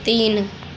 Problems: constant background noise, continuous background conversations